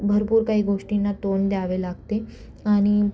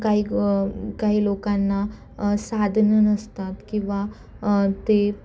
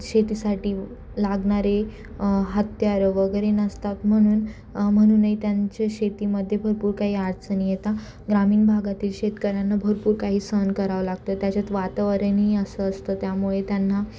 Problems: constant background noise